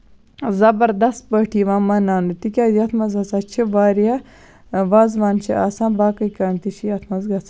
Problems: constant background noise